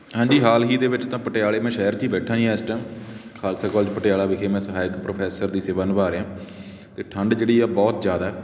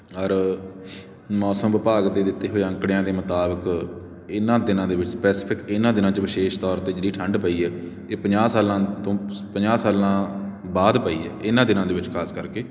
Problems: none marked